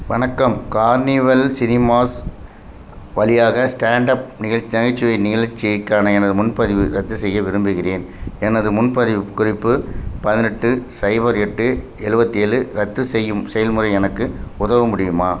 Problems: constant background noise